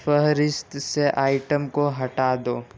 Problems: constant background noise